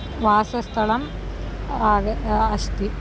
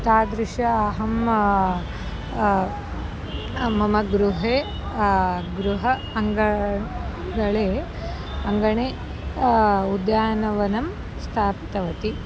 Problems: background sounds at intervals